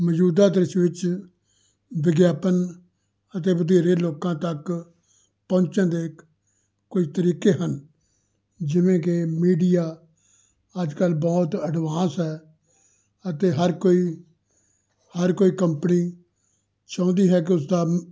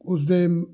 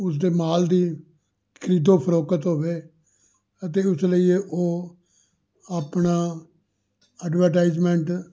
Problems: none marked